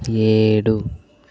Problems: none marked